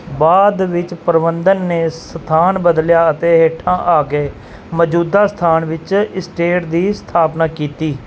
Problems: background sounds at intervals